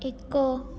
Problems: low volume